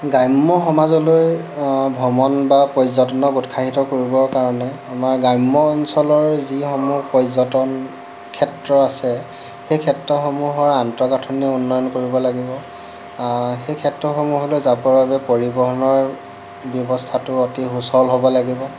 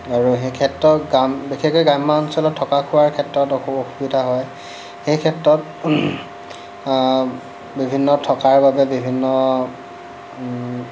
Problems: none marked